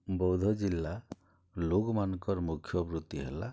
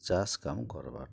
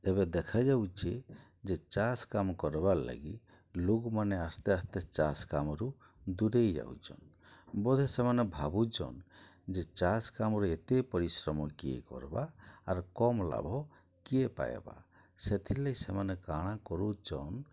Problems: low volume